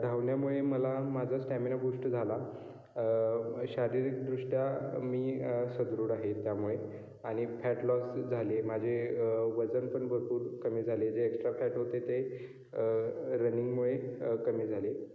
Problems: background sounds at intervals, echo